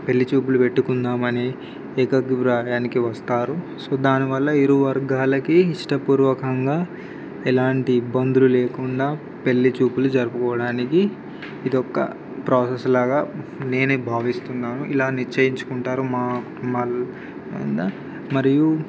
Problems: constant background noise